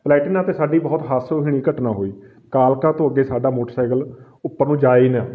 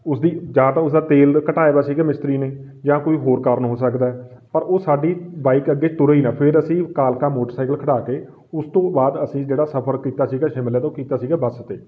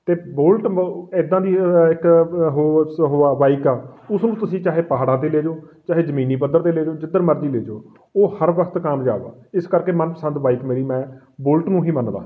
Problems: background sounds at intervals